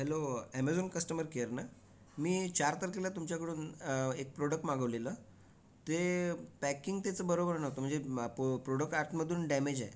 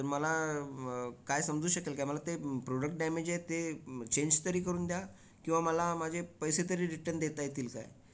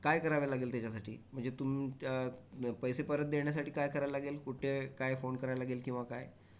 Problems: background conversations at intervals